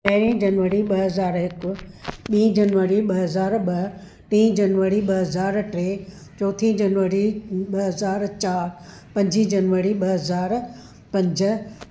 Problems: none marked